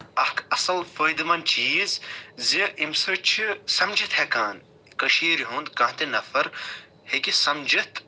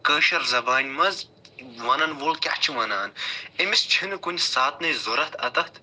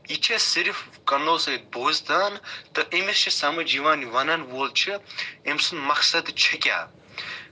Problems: background sounds at intervals